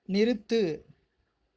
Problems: none marked